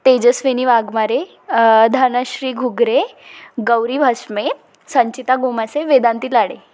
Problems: none marked